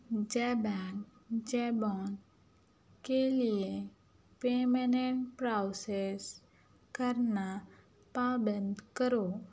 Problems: none marked